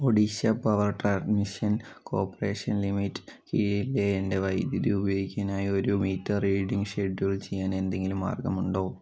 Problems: low volume